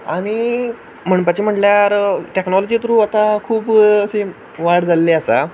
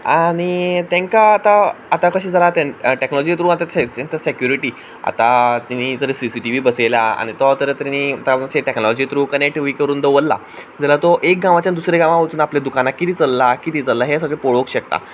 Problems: background sounds at intervals